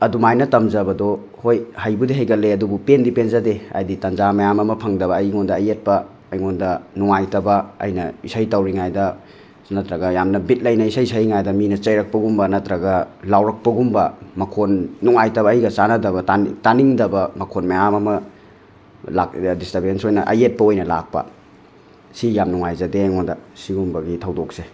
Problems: none marked